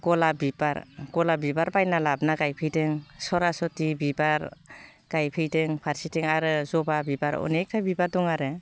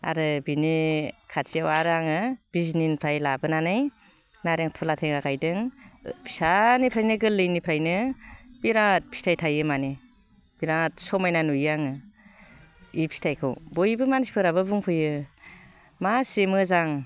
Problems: low volume